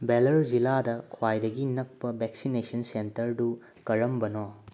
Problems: none marked